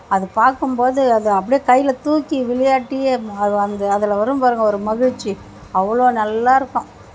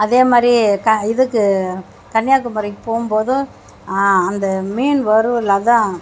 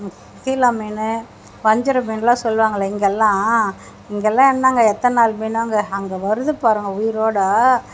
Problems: constant background noise